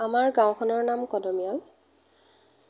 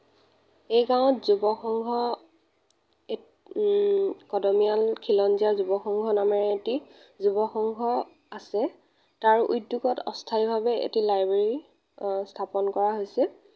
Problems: none marked